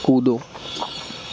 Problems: constant background noise